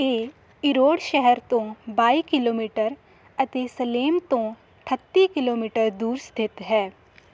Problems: none marked